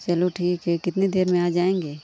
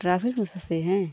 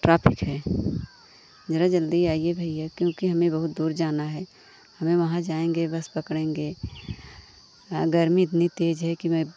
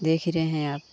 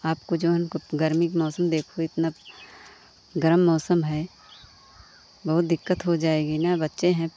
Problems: constant background noise